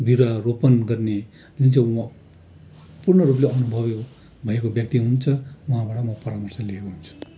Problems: none marked